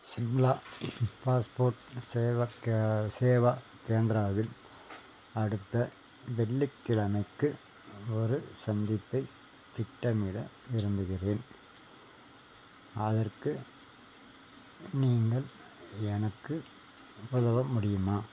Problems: none marked